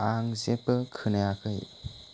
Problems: constant background noise